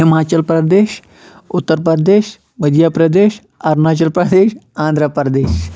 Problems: none marked